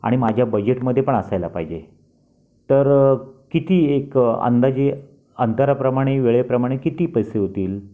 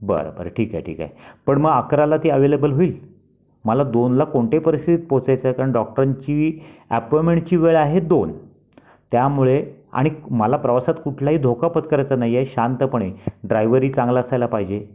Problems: constant background noise